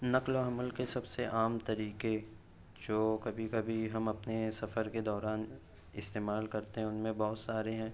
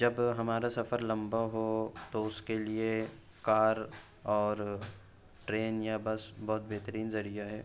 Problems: none marked